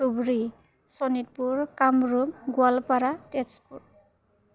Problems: none marked